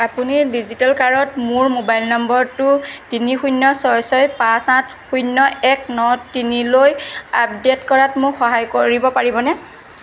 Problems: constant background noise